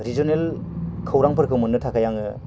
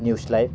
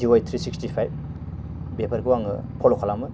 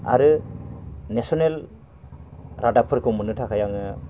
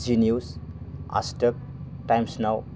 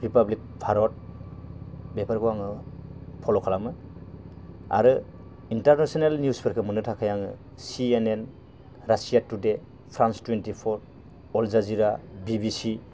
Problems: constant background noise